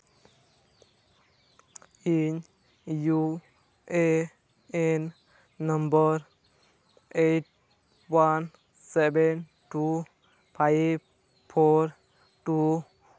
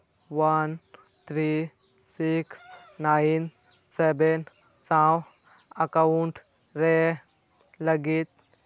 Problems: constant background noise